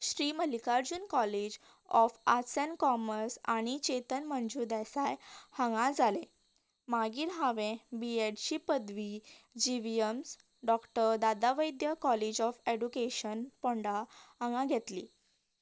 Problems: none marked